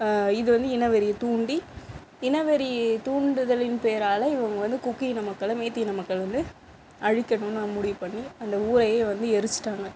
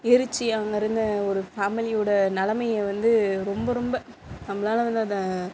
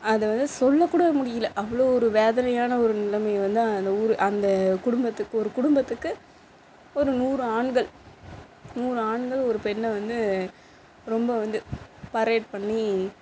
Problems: constant background noise